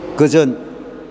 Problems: none marked